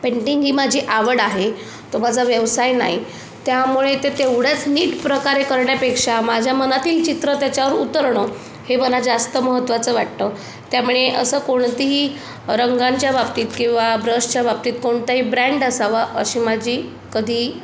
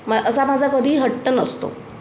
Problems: none marked